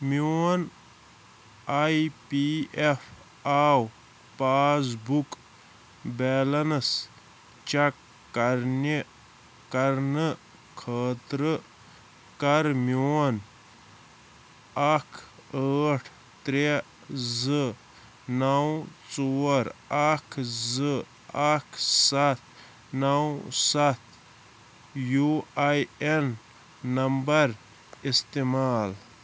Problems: constant background noise